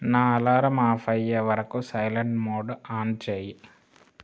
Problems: none marked